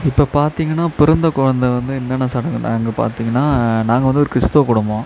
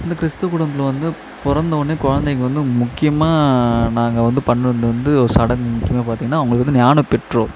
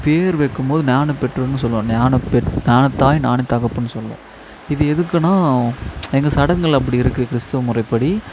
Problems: constant background noise